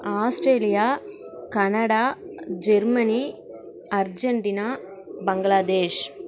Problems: background sounds at intervals